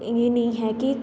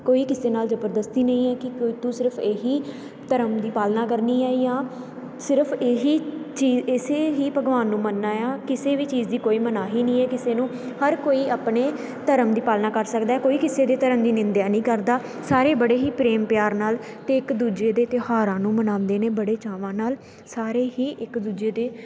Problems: constant background noise